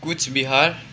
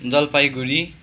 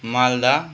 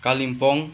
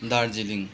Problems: constant background noise